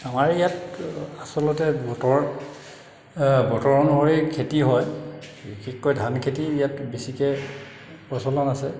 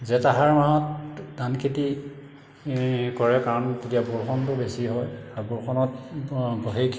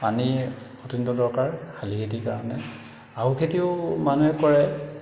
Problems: constant background noise, echo